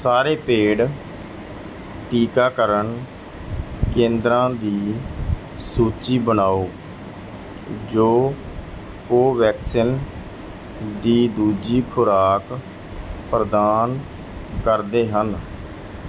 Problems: background sounds at intervals